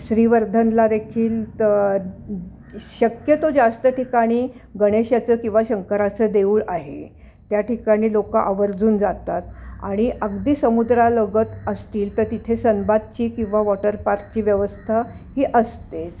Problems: background sounds at intervals